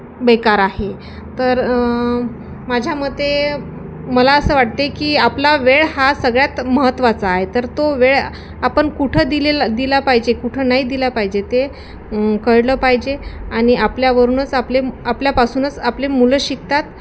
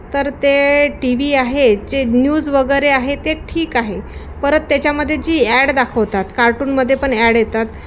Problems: constant background noise, continuous background conversations